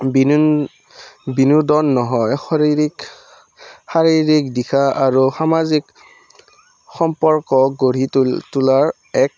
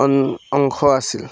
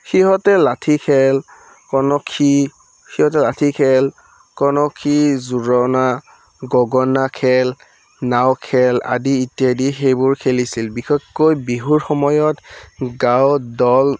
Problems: background sounds at intervals